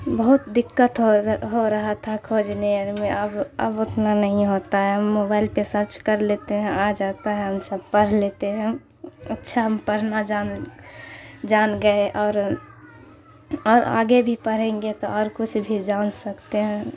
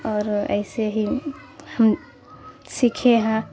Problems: constant background noise